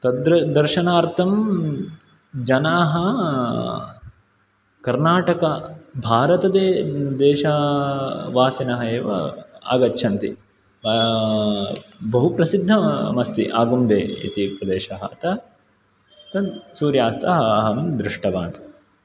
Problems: none marked